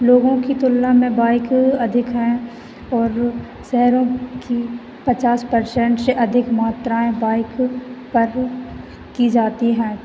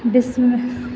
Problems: constant background noise